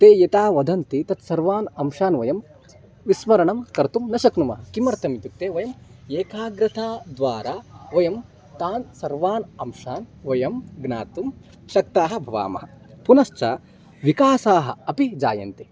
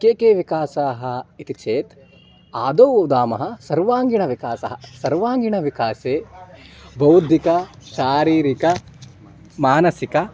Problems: background sounds at intervals